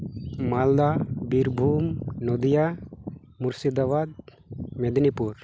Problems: background sounds at intervals